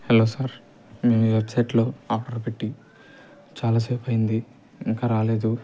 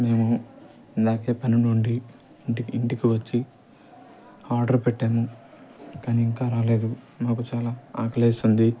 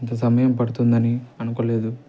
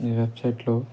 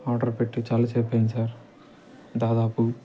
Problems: constant background noise